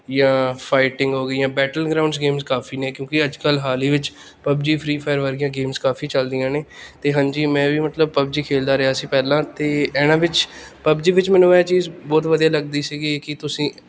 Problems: none marked